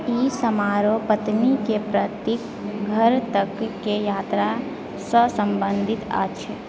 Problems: background sounds at intervals